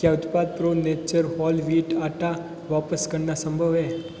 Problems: constant background noise, background conversations at intervals